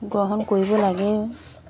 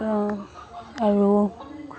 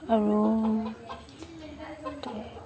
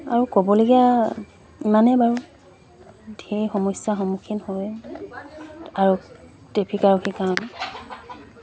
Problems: constant background noise, background conversations at intervals